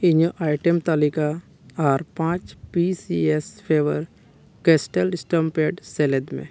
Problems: none marked